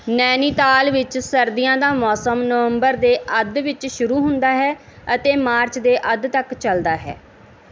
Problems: none marked